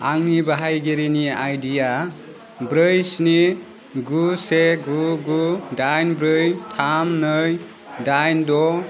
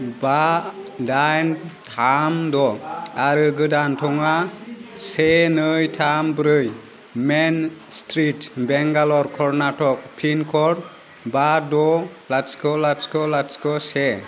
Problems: none marked